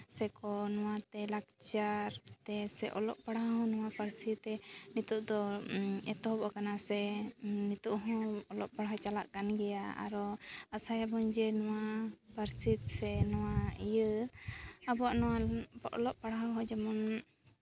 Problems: background sounds at intervals